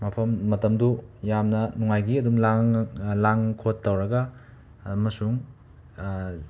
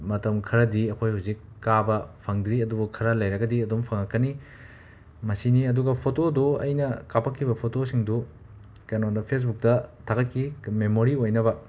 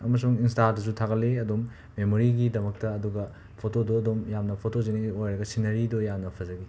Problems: background sounds at intervals